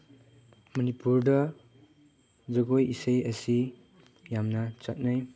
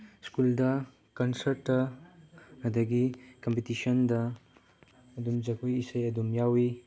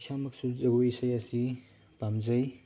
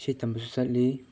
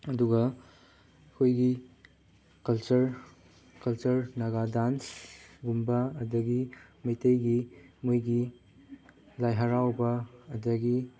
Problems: none marked